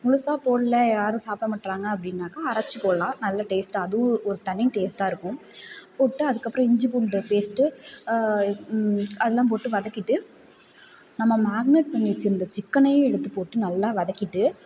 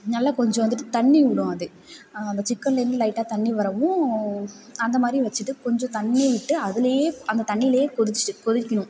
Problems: none marked